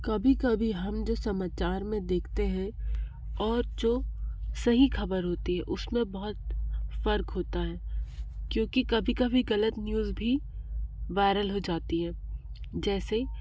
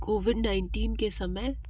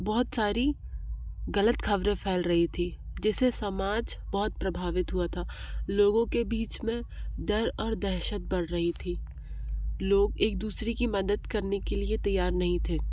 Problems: low volume